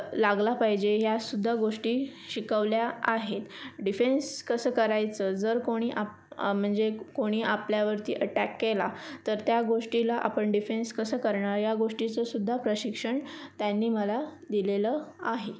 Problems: constant background noise, background conversations at intervals